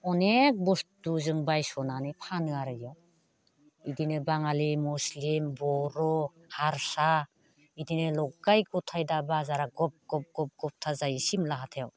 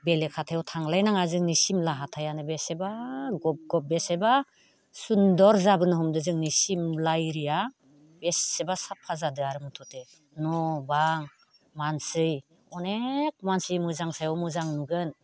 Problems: constant background noise